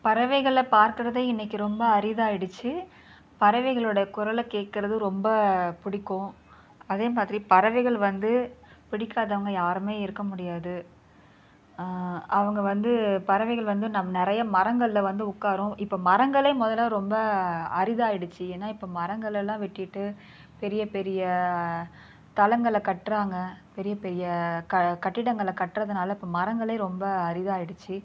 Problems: none marked